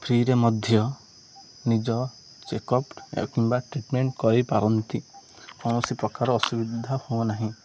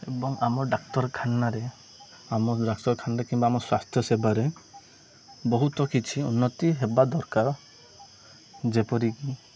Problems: none marked